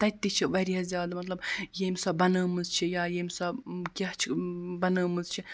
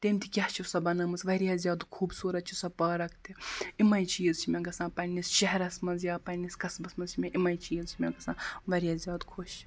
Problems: constant background noise